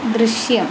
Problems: constant background noise